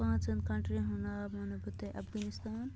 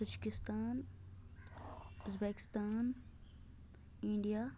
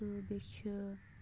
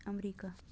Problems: low volume